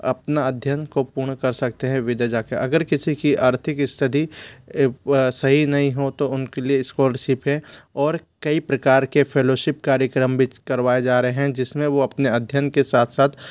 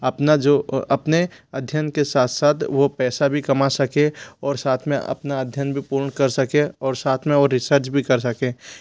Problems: background sounds at intervals